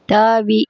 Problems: none marked